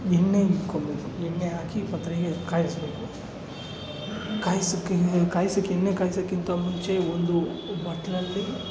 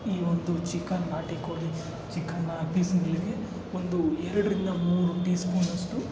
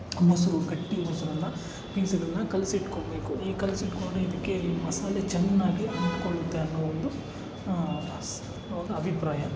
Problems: background sounds at intervals